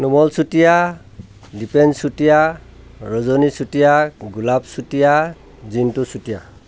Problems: none marked